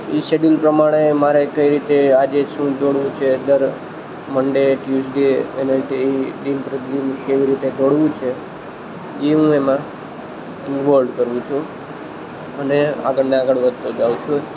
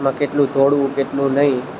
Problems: constant background noise